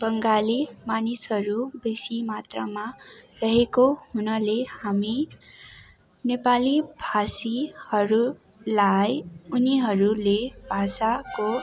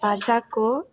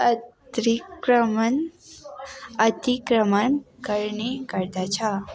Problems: constant background noise